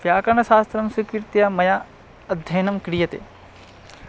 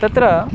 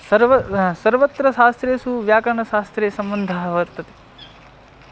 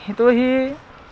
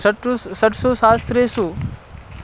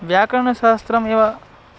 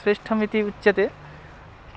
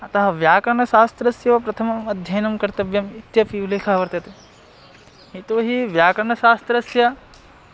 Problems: constant background noise